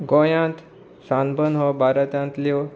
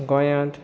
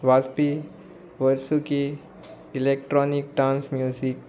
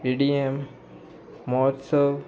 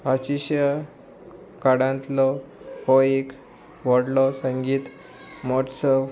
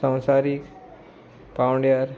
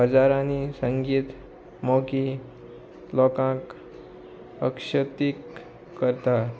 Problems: constant background noise